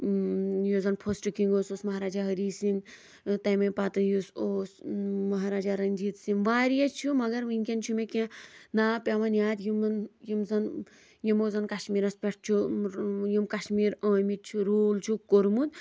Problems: none marked